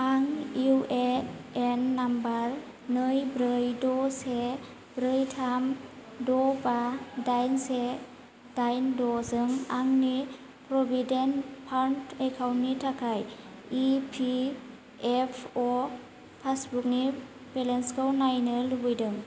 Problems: none marked